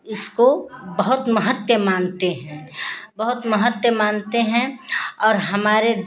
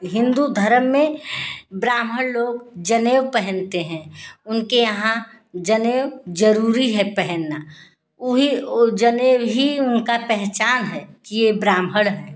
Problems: constant background noise